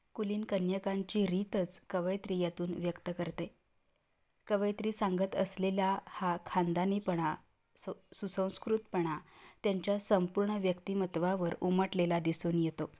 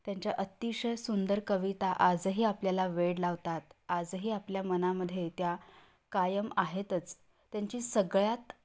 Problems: none marked